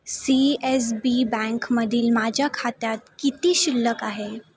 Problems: constant background noise, background conversations at intervals